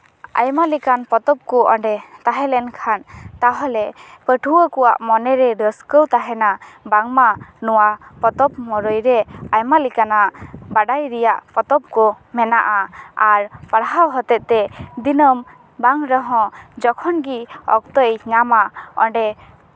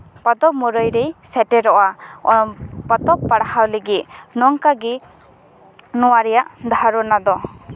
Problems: background sounds at intervals